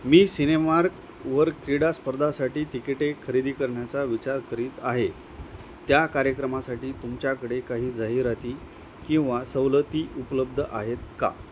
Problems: constant background noise